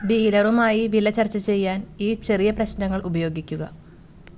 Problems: background sounds at intervals